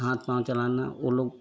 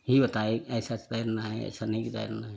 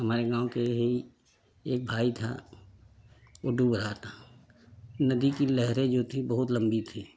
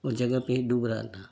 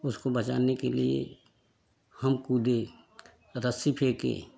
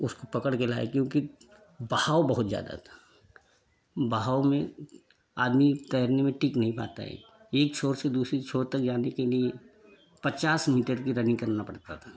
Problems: continuous background conversations